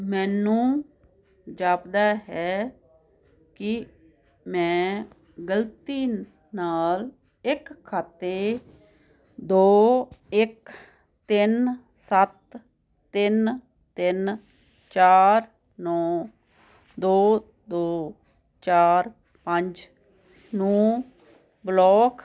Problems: constant background noise